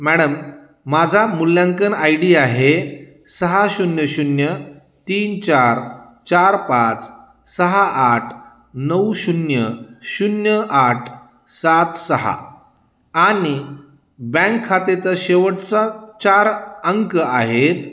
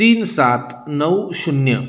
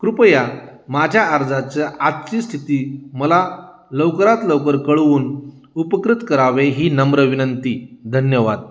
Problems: constant background noise, background conversations at intervals, echo